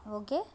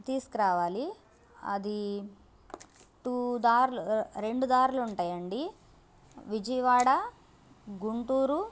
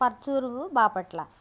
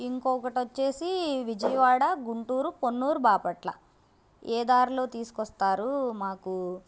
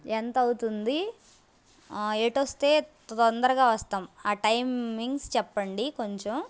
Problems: constant background noise